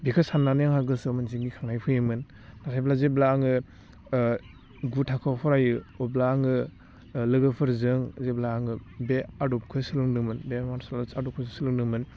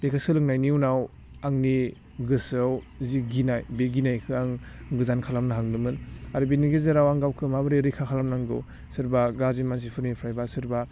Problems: constant background noise